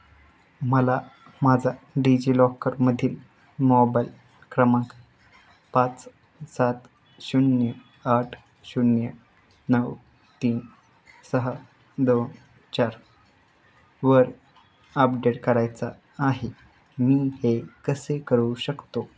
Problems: constant background noise, background conversations at intervals